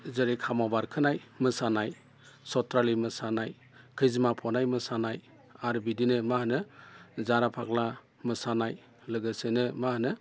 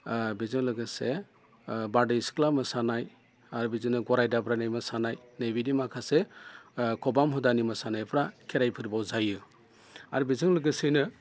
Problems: constant background noise